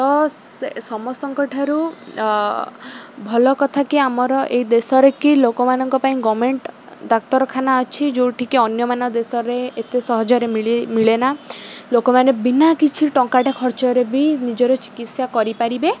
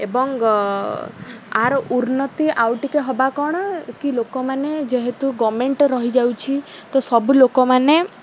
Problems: none marked